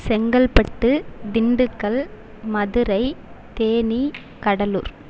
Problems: constant background noise